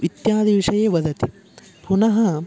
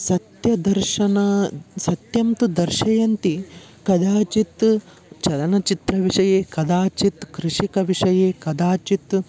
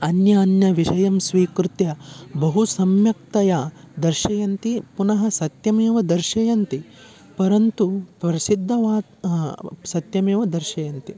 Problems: background sounds at intervals